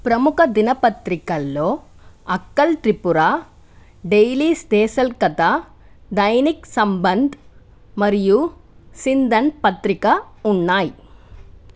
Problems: none marked